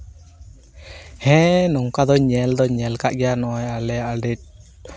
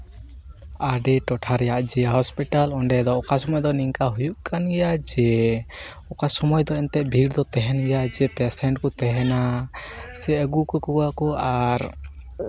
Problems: constant background noise